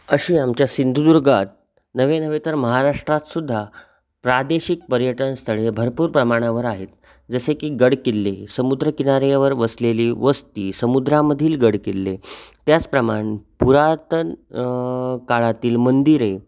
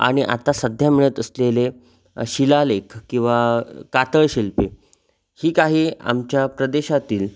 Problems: constant background noise